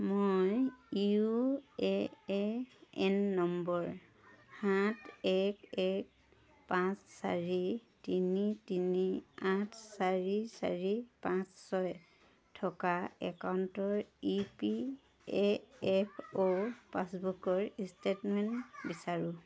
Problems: background sounds at intervals, background conversations at intervals